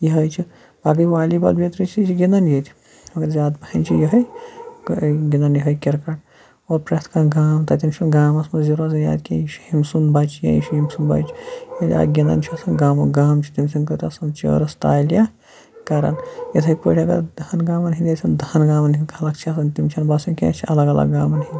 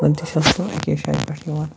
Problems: constant background noise